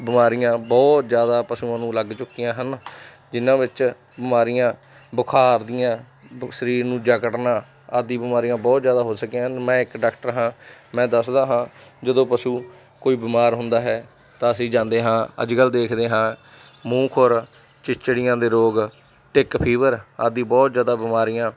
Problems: none marked